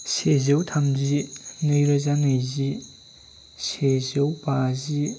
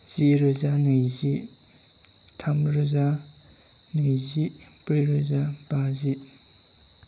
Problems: none marked